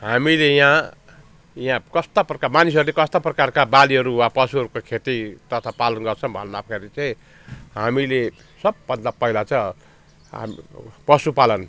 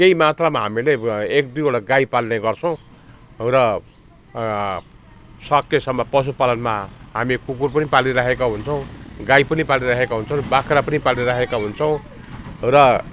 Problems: constant background noise, continuous background conversations